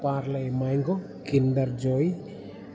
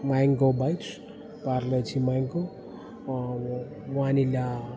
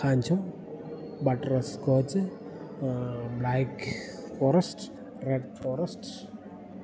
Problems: background sounds at intervals